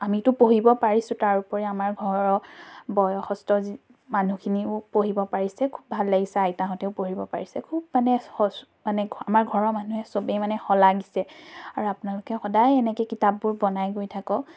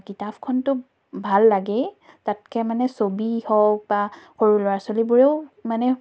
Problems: none marked